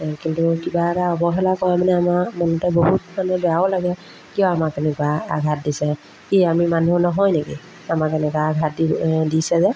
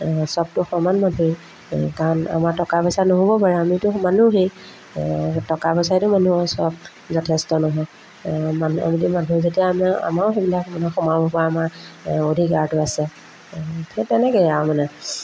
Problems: background sounds at intervals